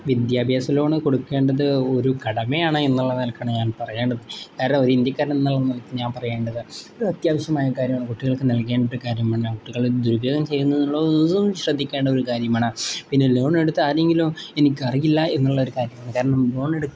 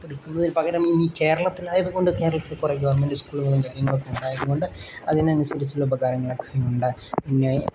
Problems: none marked